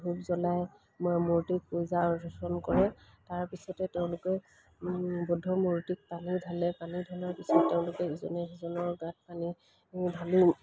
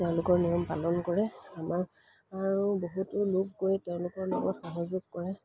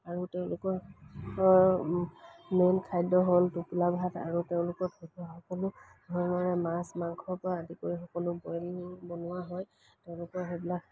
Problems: background sounds at intervals